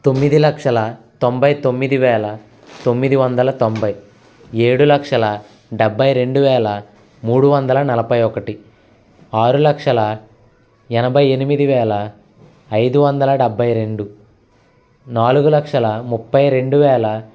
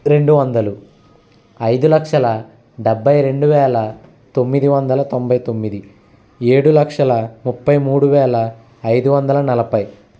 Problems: constant background noise